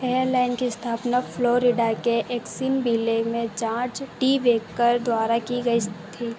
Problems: constant background noise